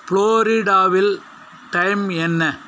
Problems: none marked